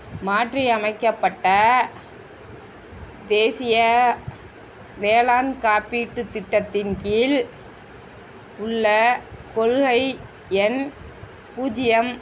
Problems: constant background noise, background conversations at intervals